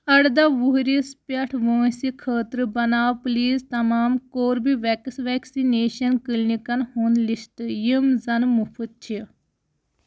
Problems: none marked